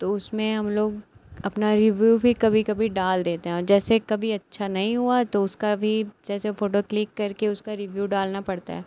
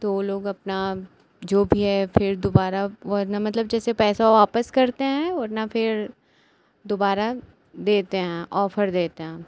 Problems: none marked